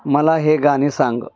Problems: background sounds at intervals, background conversations at intervals